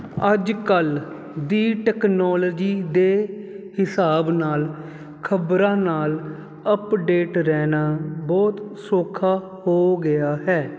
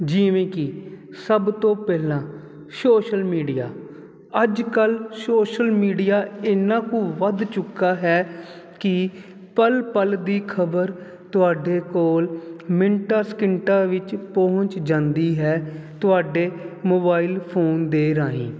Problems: none marked